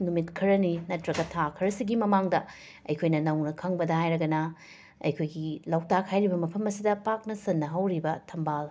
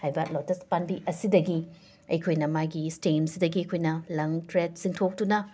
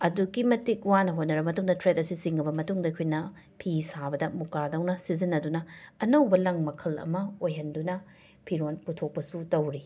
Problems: constant background noise